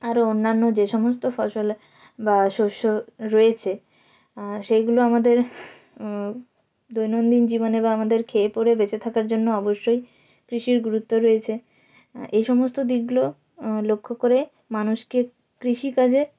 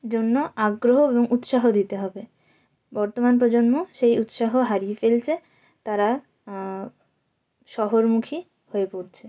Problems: none marked